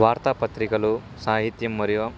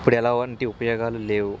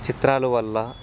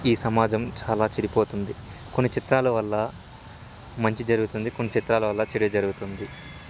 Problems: constant background noise, background conversations at intervals